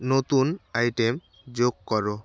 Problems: constant background noise